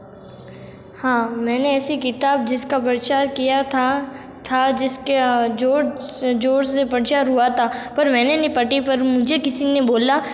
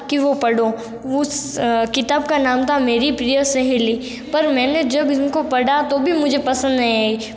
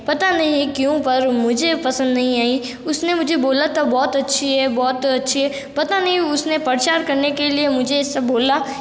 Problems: background sounds at intervals